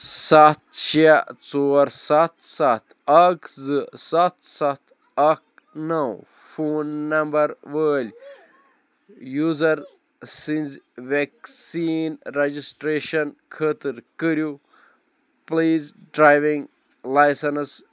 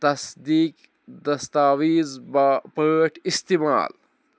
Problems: background conversations at intervals